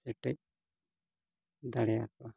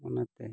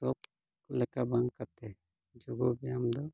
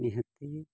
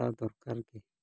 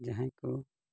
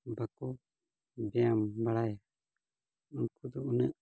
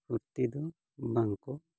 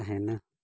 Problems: none marked